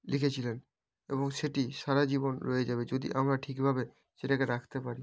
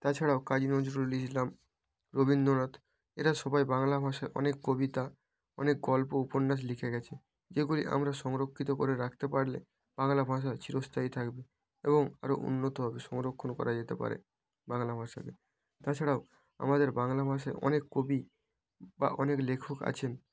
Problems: background sounds at intervals